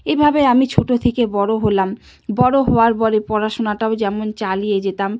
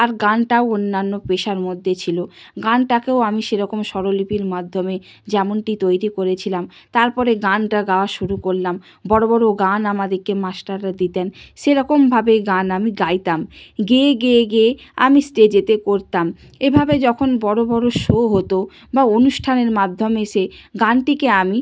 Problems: none marked